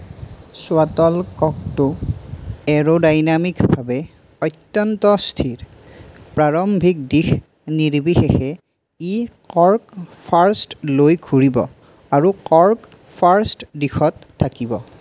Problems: none marked